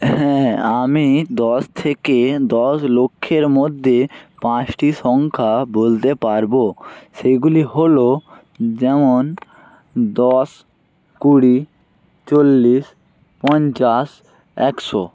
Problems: constant background noise